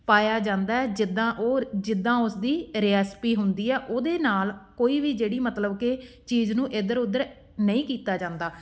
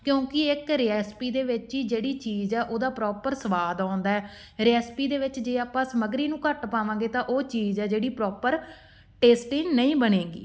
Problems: background sounds at intervals